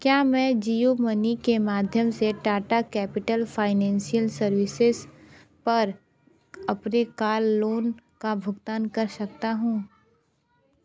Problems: continuous background conversations